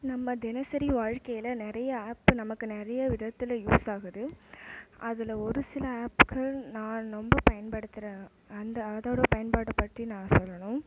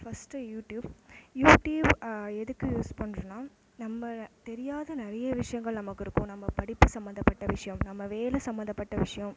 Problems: low volume